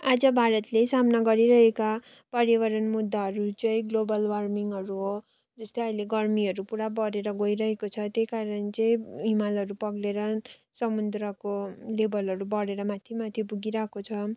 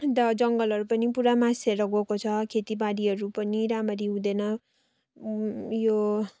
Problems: constant background noise